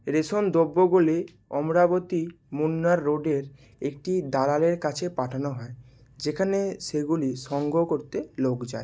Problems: none marked